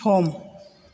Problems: none marked